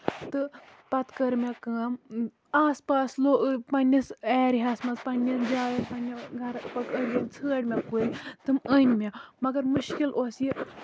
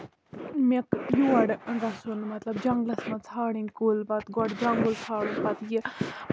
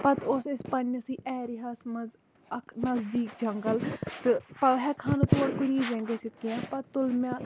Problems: constant background noise